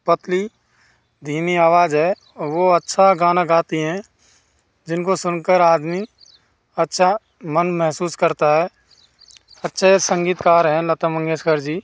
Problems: constant background noise